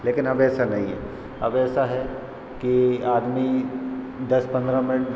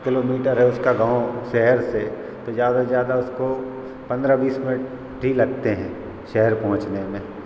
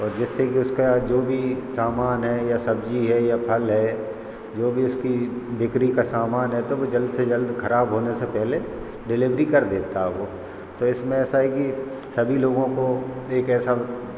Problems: constant background noise